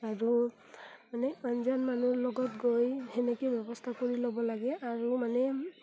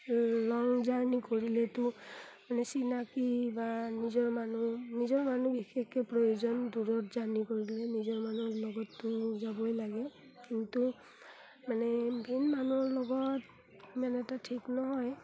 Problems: background sounds at intervals